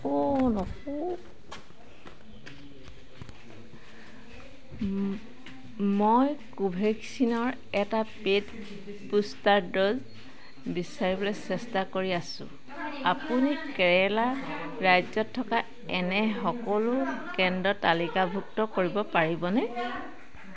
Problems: constant background noise, background conversations at intervals